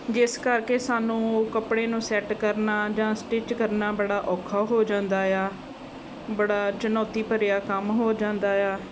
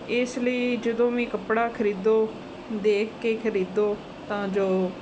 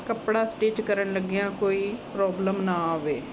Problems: none marked